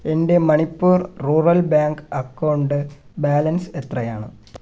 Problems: none marked